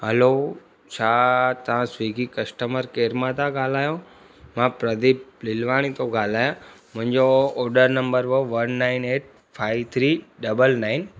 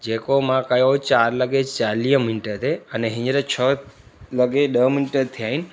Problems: constant background noise